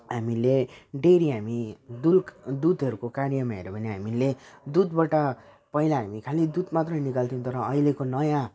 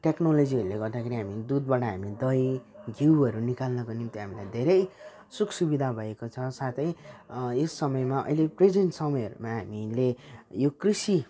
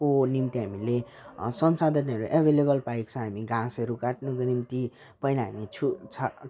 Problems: none marked